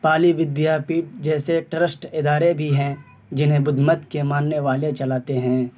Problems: constant background noise